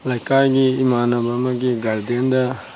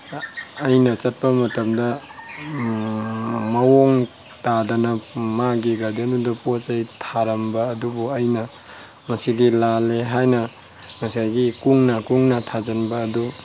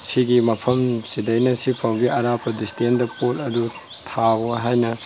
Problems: background sounds at intervals